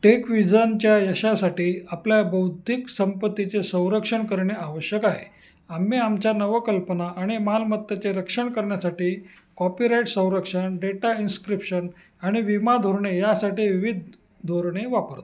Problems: constant background noise, echo